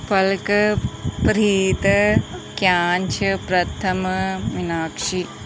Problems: background sounds at intervals